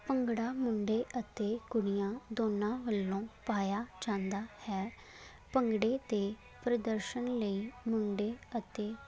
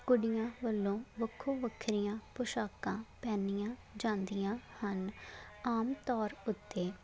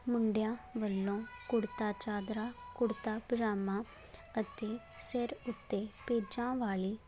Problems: background sounds at intervals